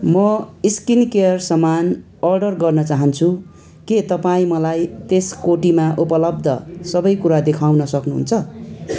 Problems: continuous background conversations